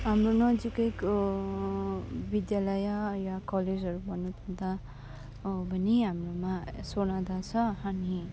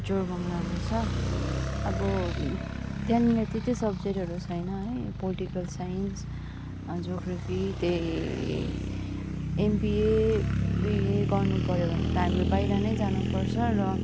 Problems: constant background noise